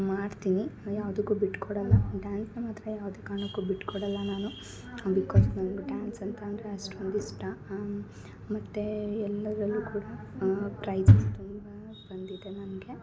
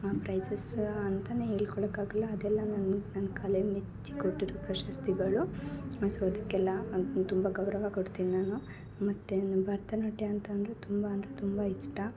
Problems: none marked